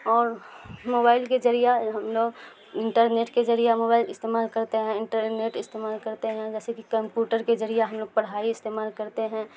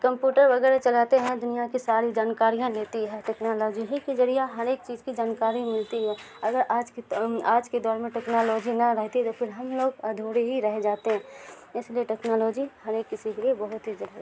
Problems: constant background noise